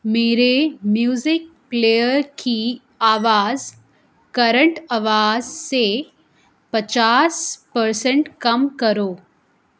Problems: constant background noise